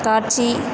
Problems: constant background noise